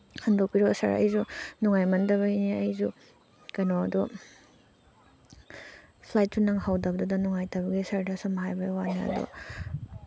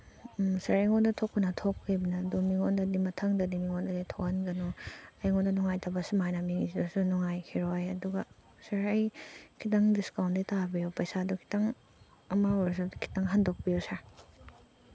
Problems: background sounds at intervals